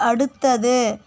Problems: constant background noise